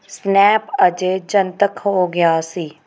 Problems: background sounds at intervals